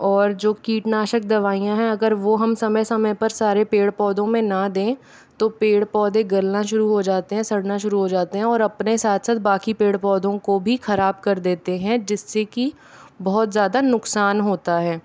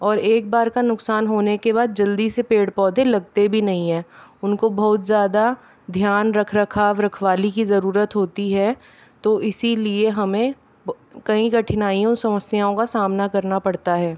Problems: none marked